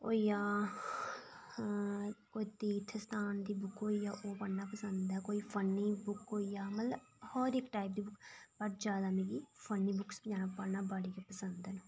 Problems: low volume